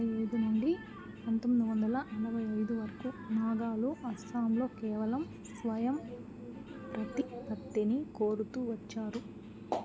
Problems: low volume